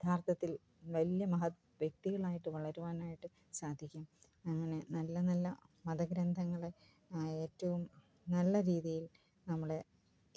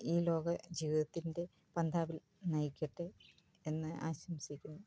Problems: low volume